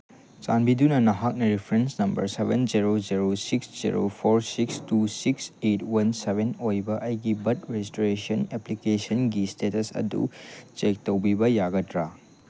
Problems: none marked